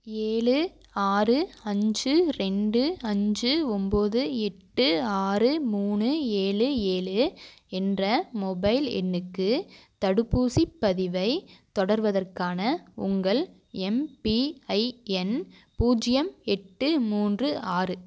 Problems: none marked